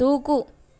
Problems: none marked